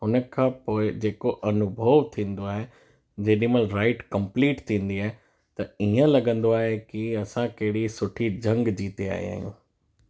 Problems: background sounds at intervals